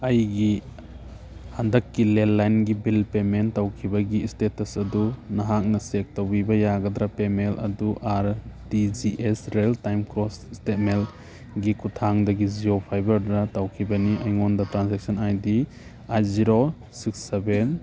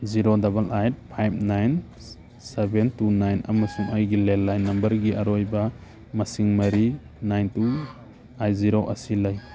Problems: background sounds at intervals